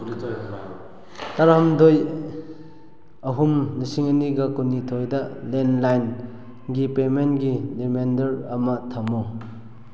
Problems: background conversations at intervals